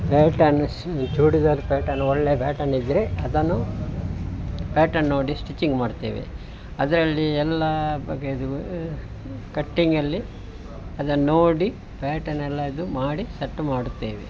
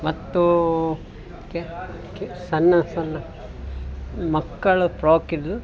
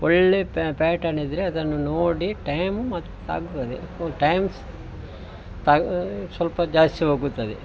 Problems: none marked